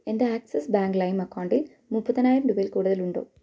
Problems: low volume